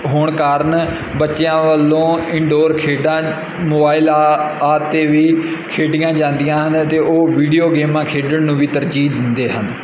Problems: background sounds at intervals